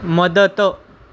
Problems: background sounds at intervals